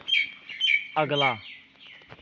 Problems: constant background noise